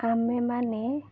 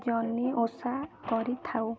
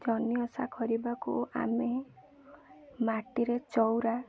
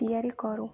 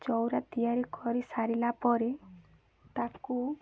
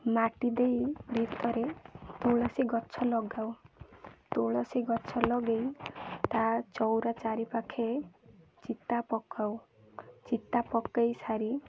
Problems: none marked